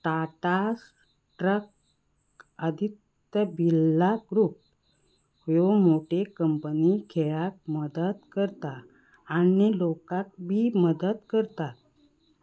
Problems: background sounds at intervals